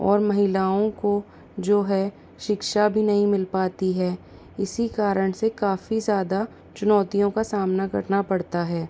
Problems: constant background noise